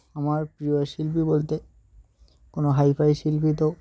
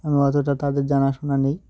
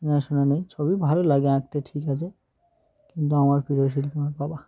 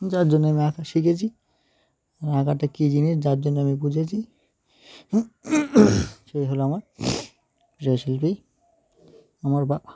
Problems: background sounds at intervals, background conversations at intervals